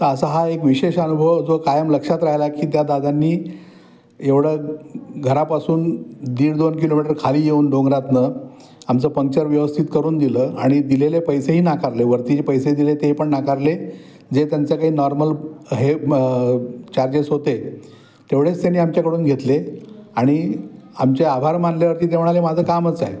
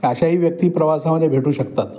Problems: background sounds at intervals, background conversations at intervals